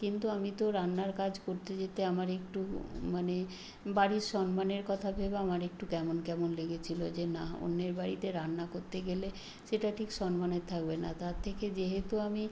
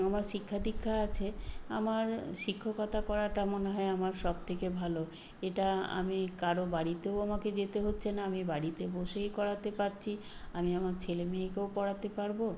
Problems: none marked